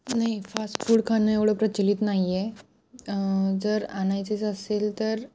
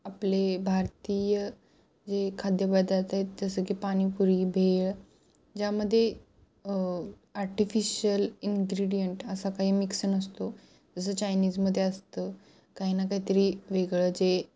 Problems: none marked